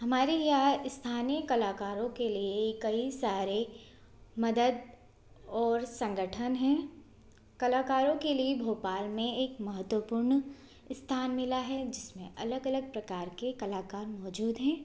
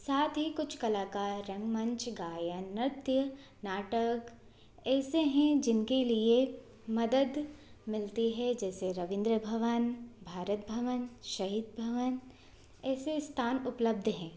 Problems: constant background noise